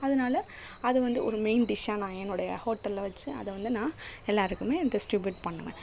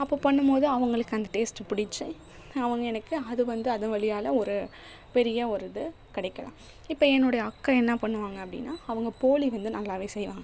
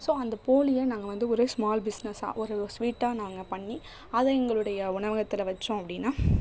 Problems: background sounds at intervals